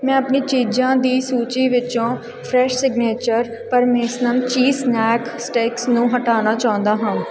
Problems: background sounds at intervals